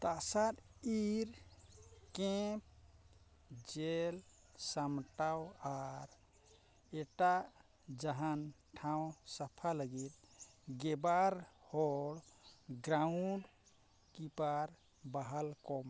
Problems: none marked